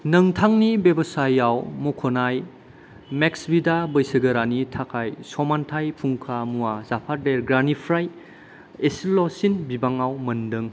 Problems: none marked